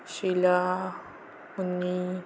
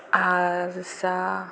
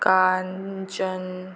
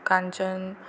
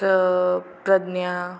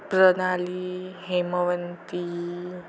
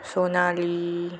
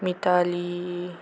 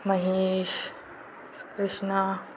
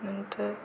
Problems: constant background noise